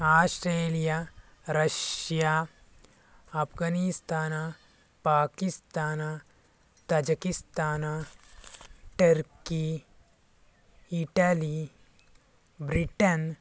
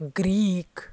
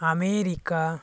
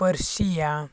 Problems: none marked